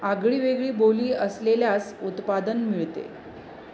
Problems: none marked